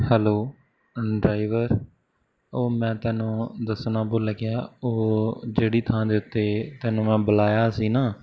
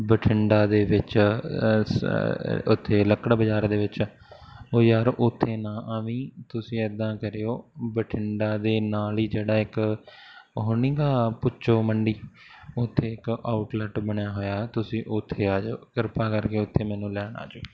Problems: background sounds at intervals